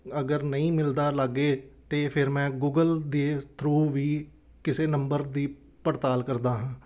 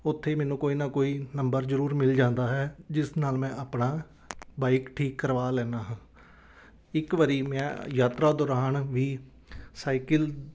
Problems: none marked